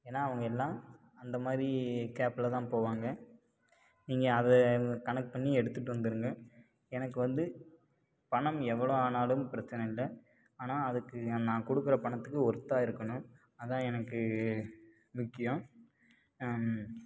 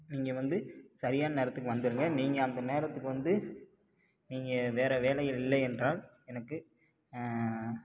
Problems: low volume